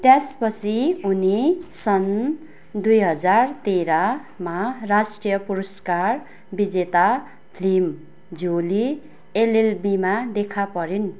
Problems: none marked